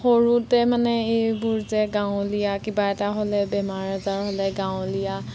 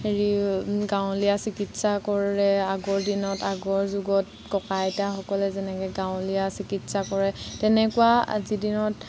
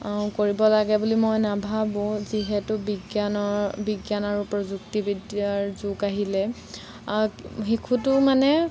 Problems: constant background noise